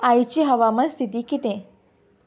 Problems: background sounds at intervals